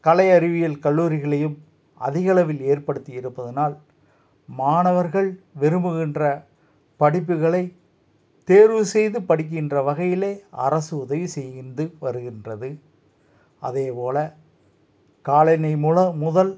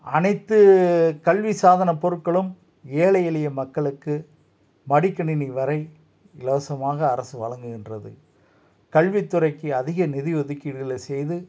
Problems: none marked